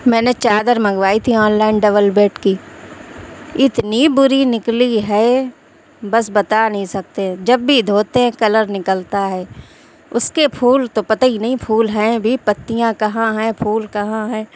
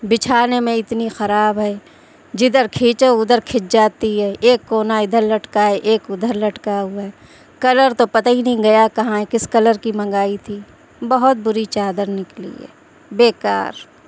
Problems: constant background noise